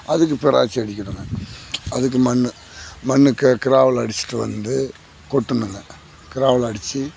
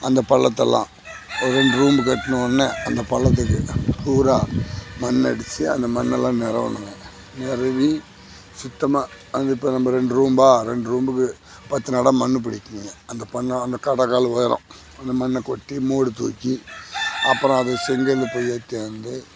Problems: none marked